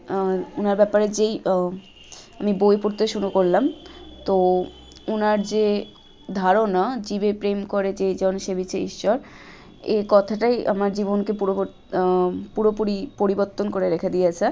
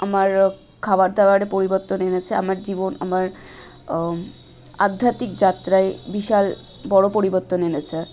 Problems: none marked